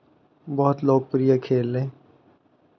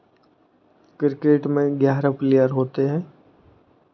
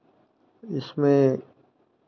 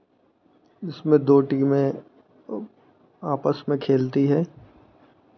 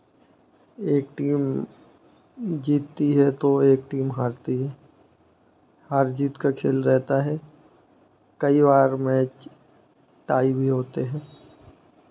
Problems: constant background noise